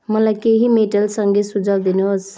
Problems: background sounds at intervals